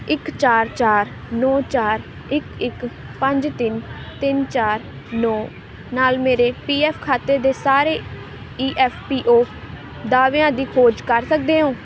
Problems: constant background noise